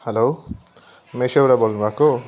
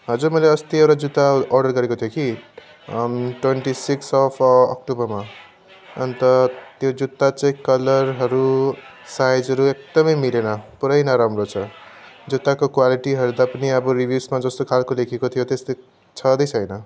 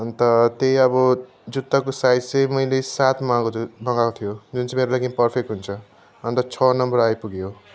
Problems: constant background noise